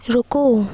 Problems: constant background noise